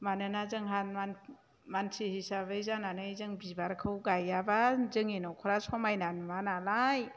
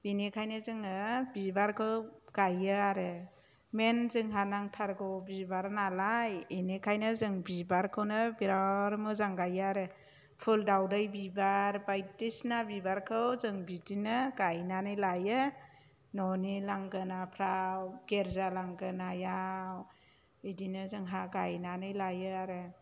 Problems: none marked